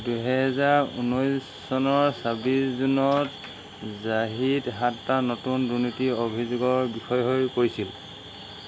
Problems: constant background noise